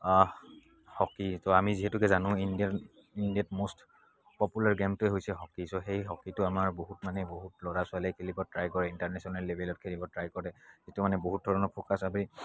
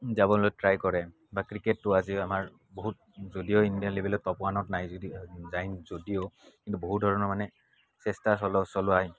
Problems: background sounds at intervals